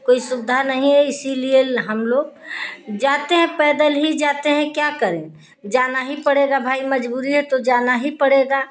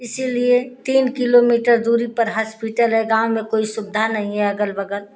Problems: constant background noise